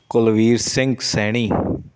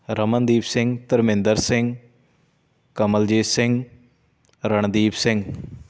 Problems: constant background noise